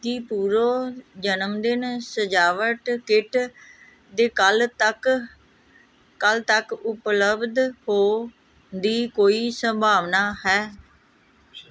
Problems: none marked